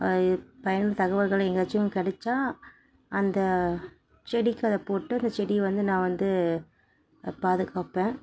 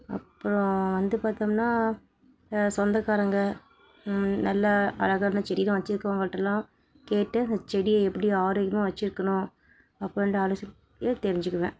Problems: background sounds at intervals, background conversations at intervals